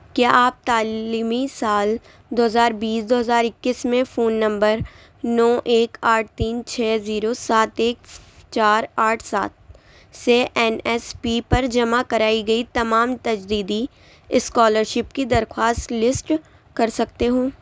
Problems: none marked